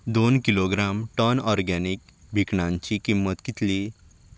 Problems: background sounds at intervals